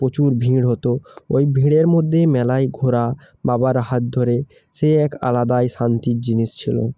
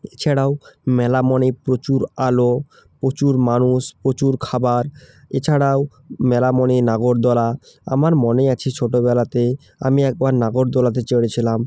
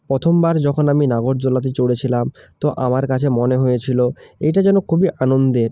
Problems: none marked